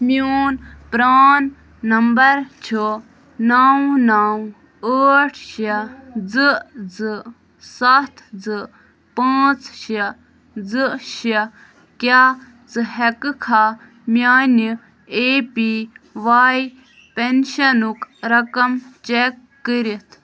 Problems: none marked